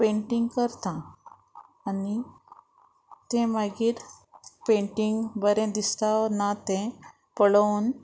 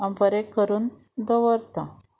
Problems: none marked